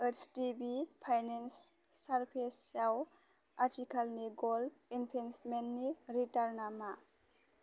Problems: constant background noise